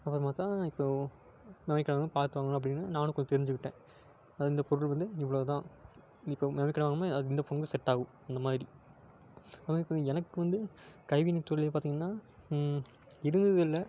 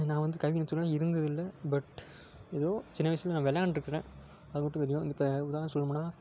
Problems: constant background noise